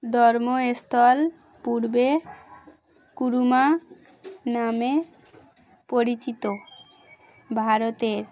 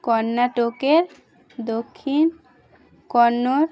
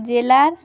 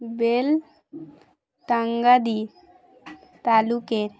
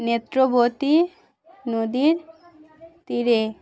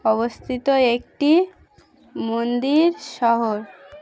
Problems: constant background noise, continuous background conversations